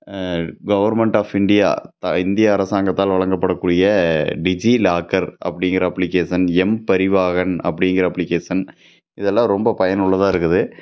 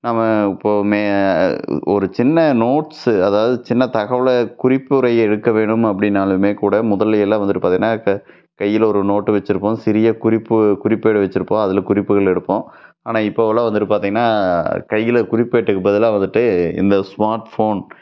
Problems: none marked